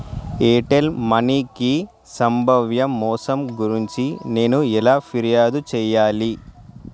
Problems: background sounds at intervals